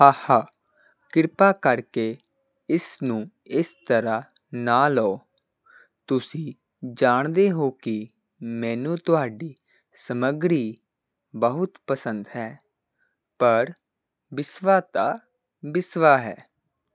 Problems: constant background noise